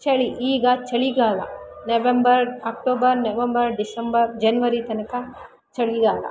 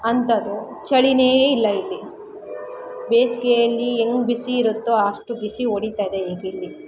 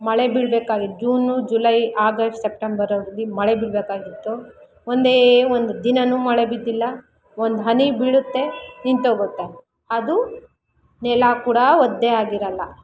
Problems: none marked